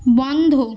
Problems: constant background noise